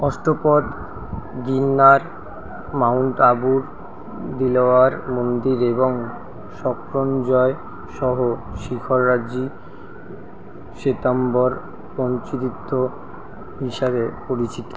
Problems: constant background noise